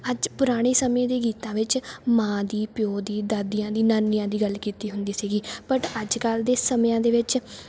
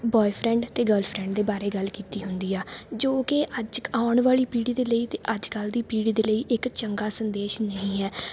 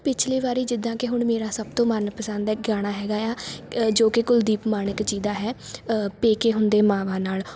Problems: background sounds at intervals